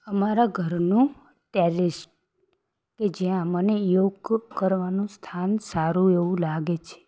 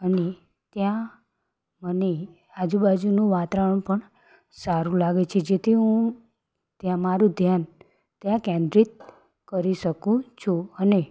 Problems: background sounds at intervals